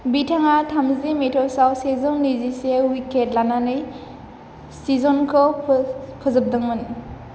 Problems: constant background noise